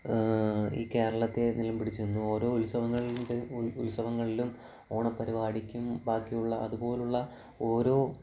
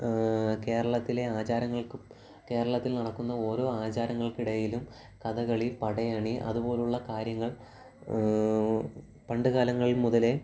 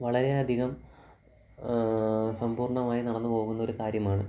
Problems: background sounds at intervals, low volume